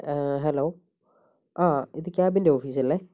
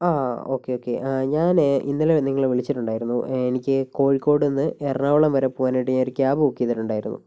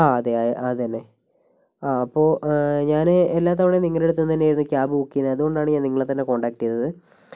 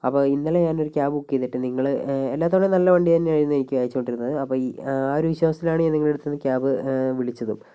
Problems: none marked